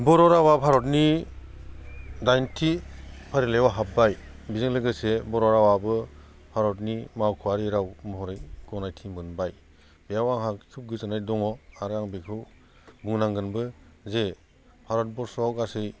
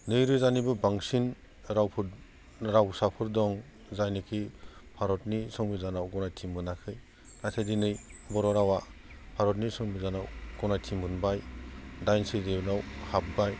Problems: constant background noise